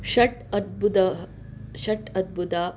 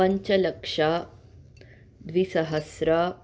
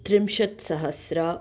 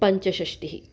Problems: none marked